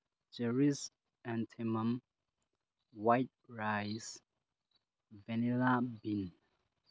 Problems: low volume